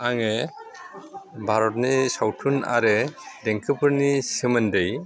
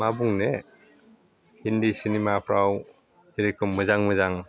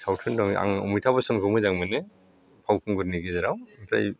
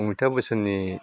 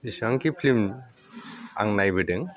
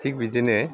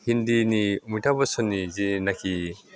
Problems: none marked